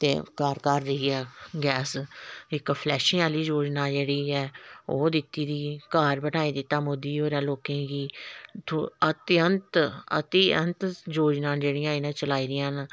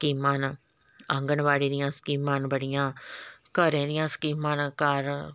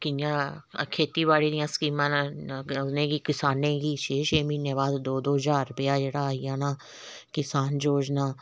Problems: background sounds at intervals